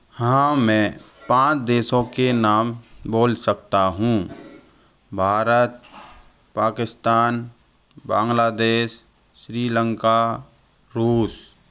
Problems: background sounds at intervals